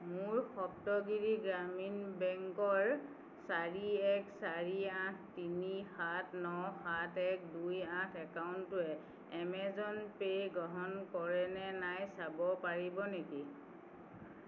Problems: constant background noise